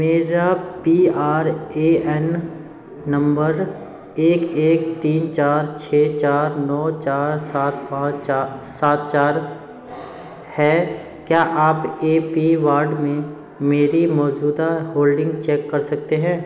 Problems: background sounds at intervals